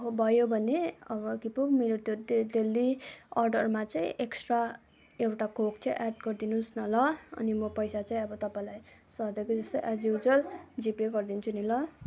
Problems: continuous background conversations